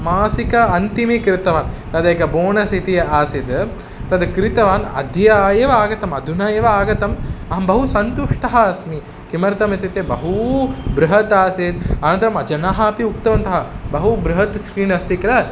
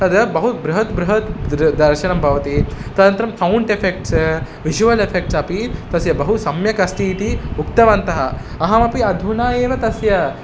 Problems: constant background noise